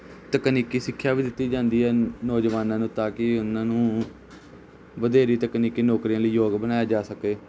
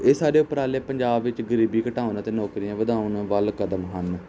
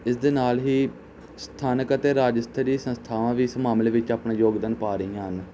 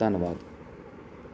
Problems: constant background noise